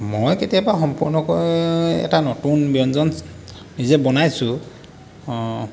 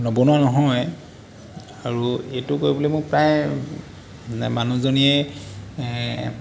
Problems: constant background noise